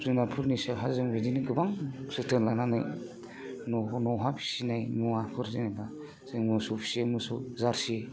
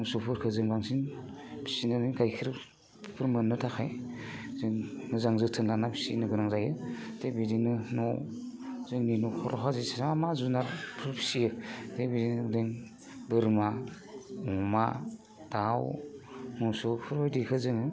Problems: constant background noise